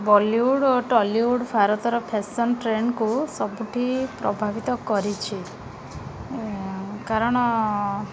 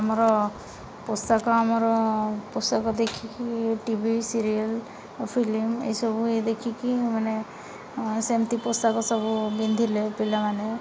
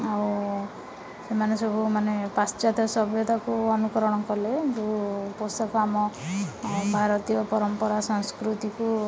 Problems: constant background noise, continuous background conversations